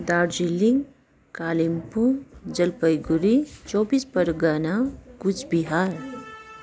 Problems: constant background noise